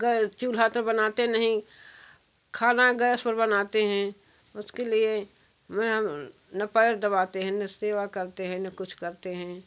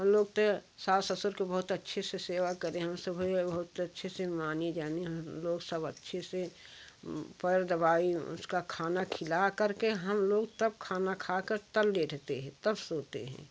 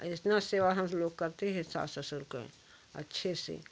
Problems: background sounds at intervals